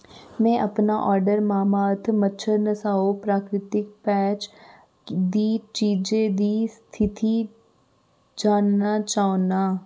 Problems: constant background noise